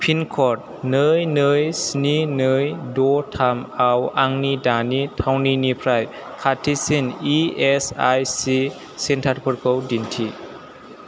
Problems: constant background noise